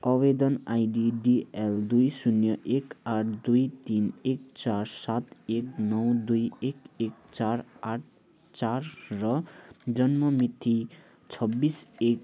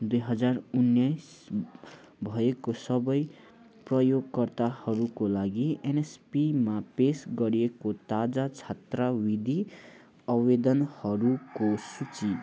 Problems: constant background noise